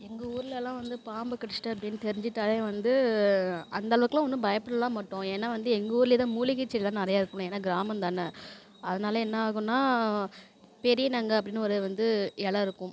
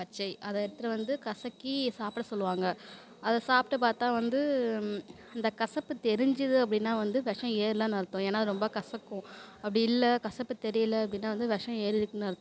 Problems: constant background noise